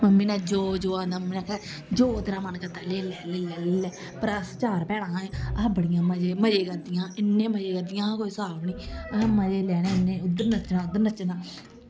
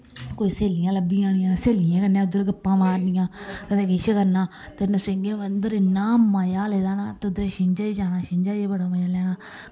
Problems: background sounds at intervals, echo